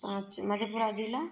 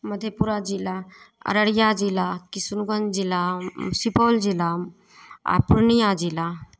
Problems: none marked